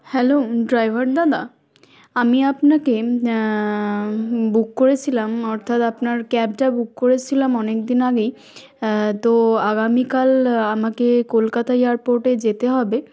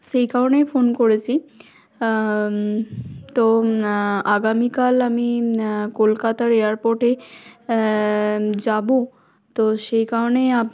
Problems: none marked